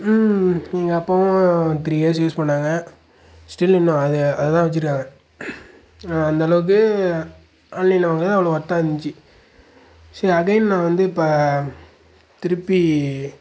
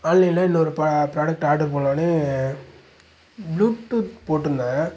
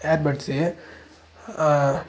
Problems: none marked